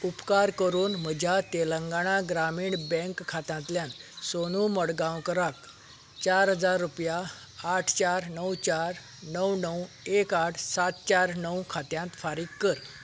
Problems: background sounds at intervals